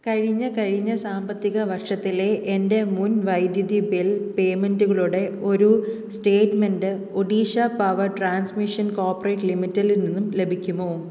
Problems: low volume